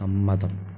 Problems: none marked